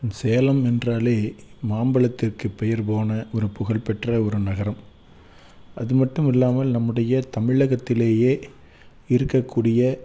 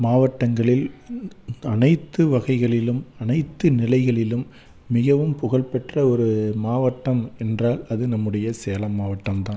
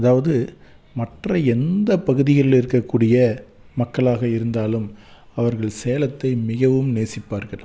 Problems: none marked